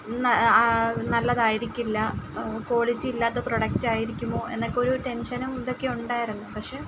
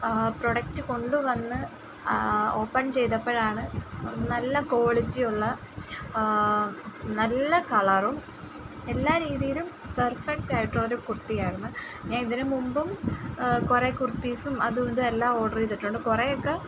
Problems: none marked